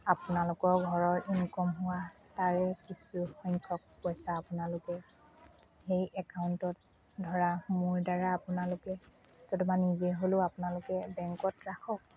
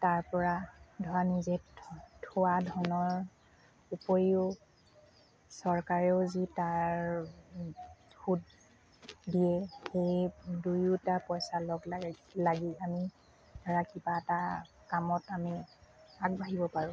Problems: constant background noise, background conversations at intervals, low volume